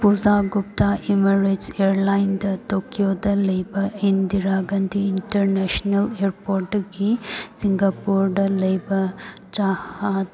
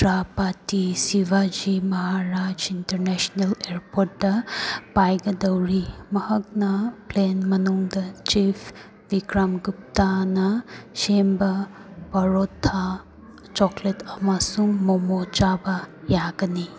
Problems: background sounds at intervals